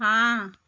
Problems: none marked